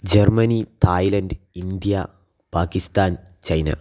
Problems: none marked